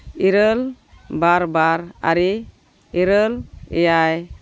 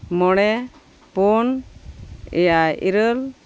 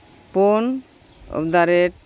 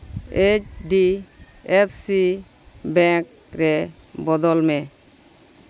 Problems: constant background noise, background conversations at intervals